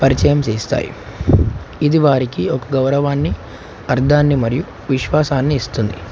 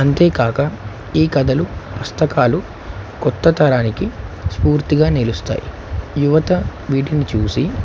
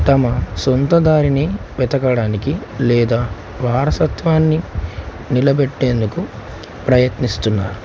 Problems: constant background noise